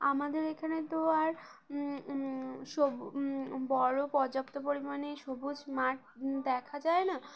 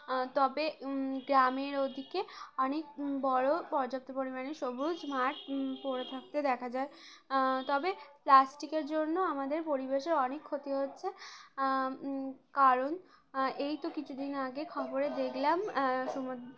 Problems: none marked